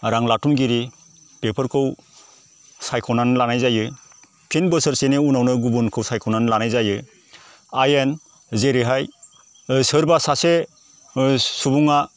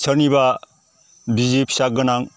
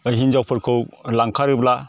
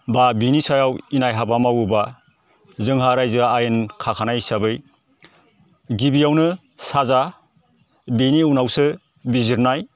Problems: constant background noise